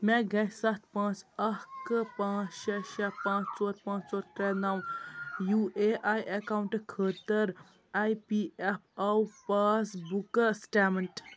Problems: constant background noise